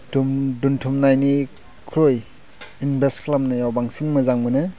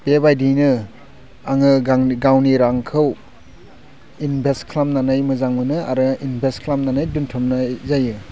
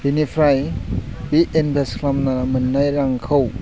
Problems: low volume